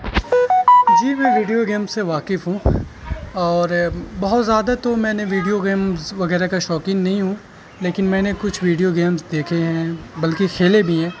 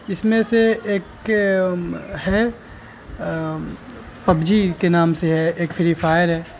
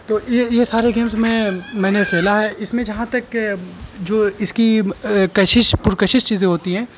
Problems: constant background noise